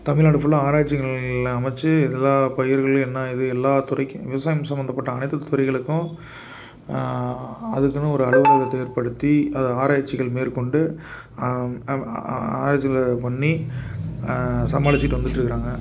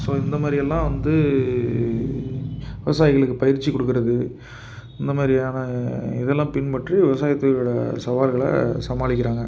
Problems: background sounds at intervals